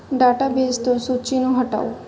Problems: none marked